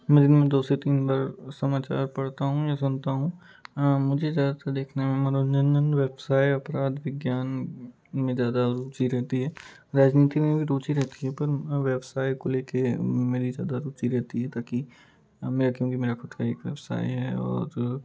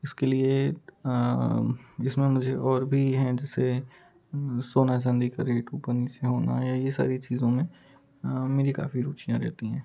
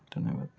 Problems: background sounds at intervals, background conversations at intervals